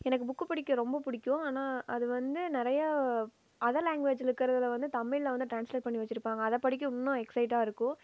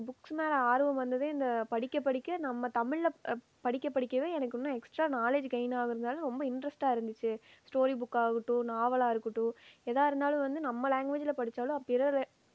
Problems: low volume